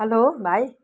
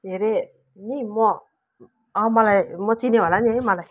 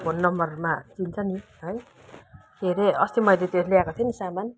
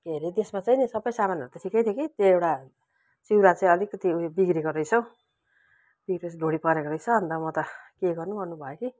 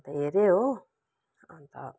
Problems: background sounds at intervals